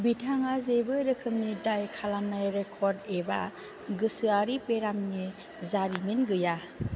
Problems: constant background noise